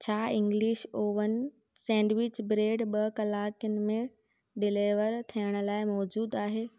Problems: none marked